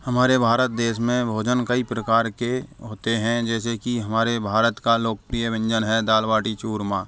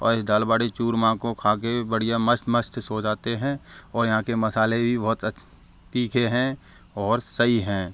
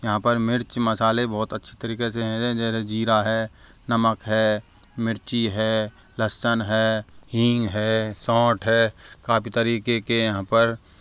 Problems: constant background noise, background conversations at intervals